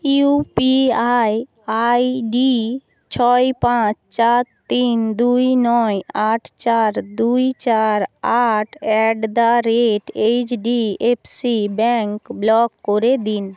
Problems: constant background noise